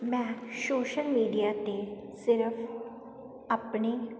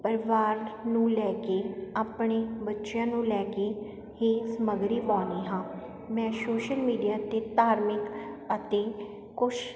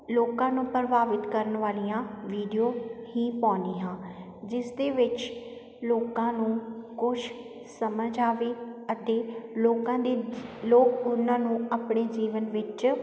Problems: constant background noise